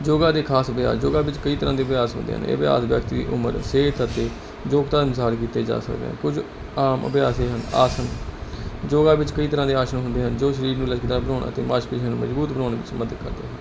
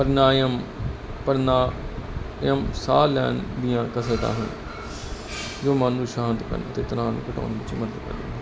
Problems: constant background noise